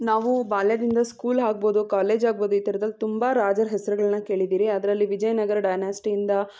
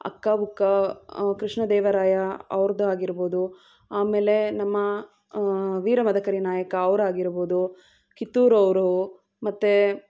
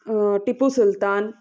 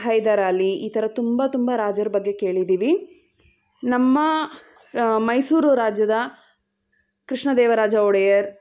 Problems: background conversations at intervals